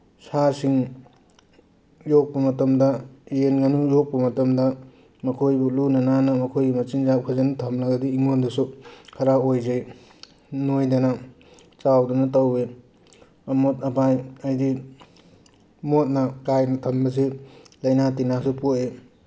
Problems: none marked